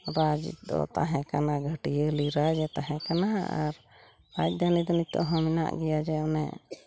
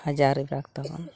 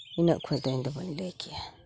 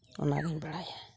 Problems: background sounds at intervals, background conversations at intervals